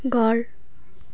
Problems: background sounds at intervals